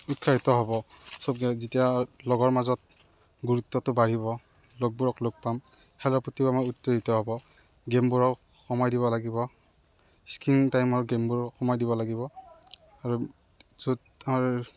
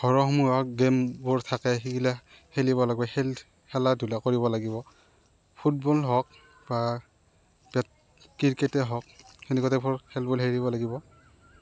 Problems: none marked